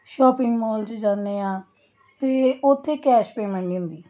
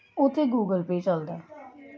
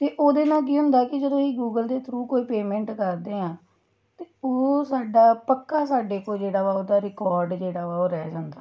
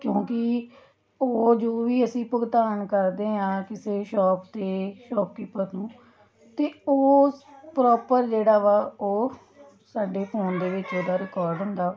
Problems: continuous background conversations